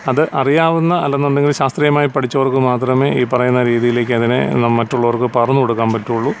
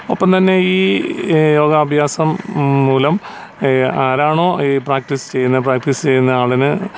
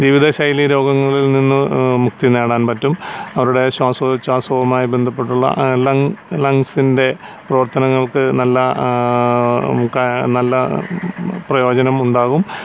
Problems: none marked